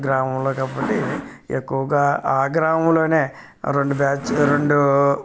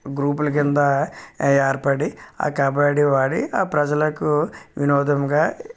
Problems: background sounds at intervals